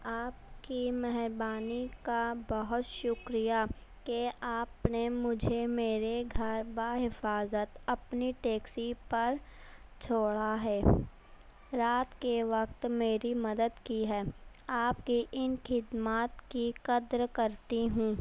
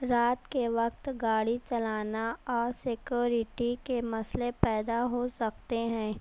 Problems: none marked